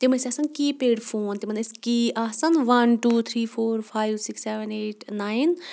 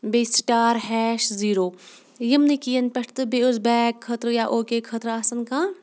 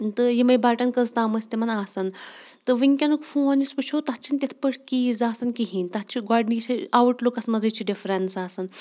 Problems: none marked